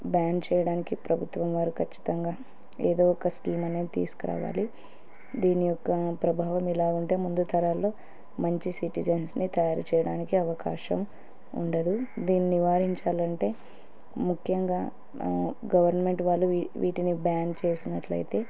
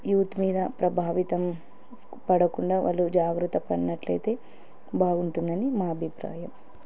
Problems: background sounds at intervals